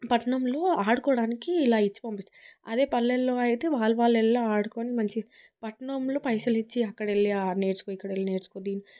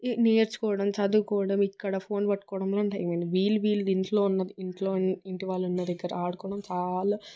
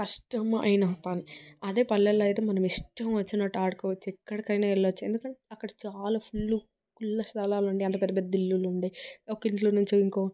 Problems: background sounds at intervals